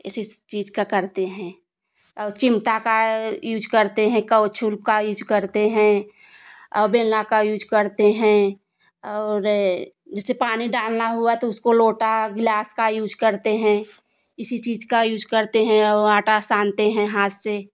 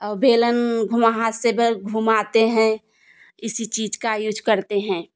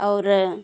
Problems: none marked